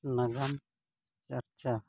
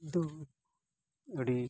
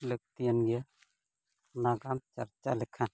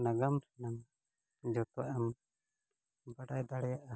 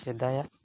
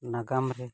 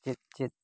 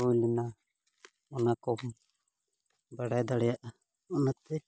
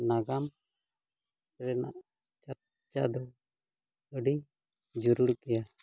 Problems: low volume